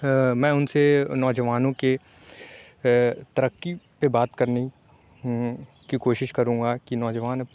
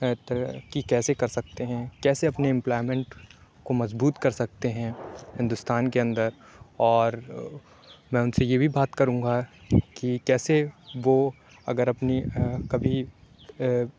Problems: low volume